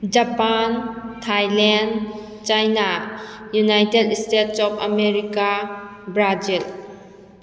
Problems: none marked